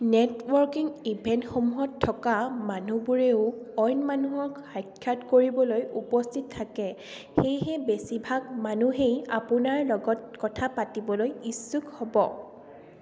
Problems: constant background noise, echo